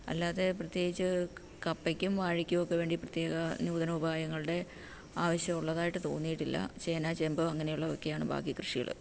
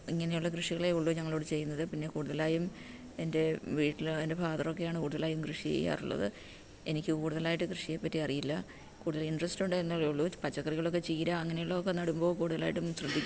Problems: background sounds at intervals